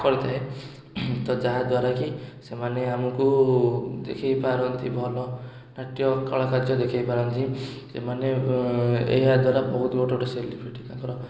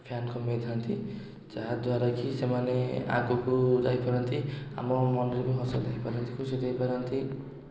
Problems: background sounds at intervals